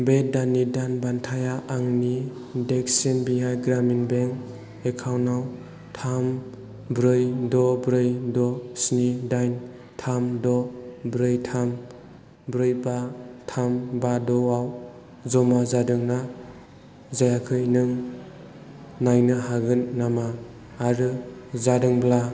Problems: constant background noise